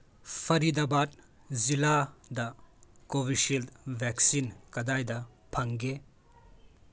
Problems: background conversations at intervals